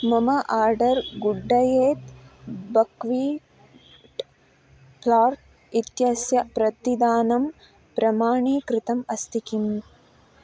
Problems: background sounds at intervals